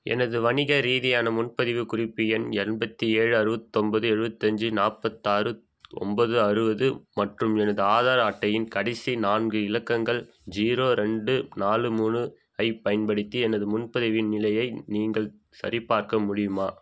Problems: background sounds at intervals